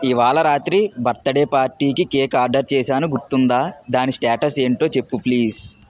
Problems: none marked